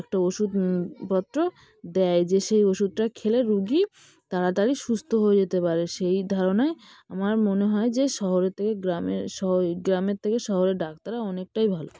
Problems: constant background noise, background conversations at intervals